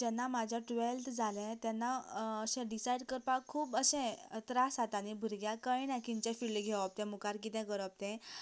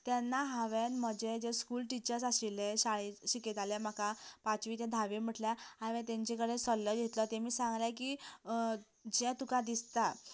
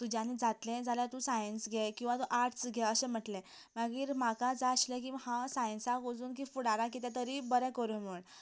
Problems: constant background noise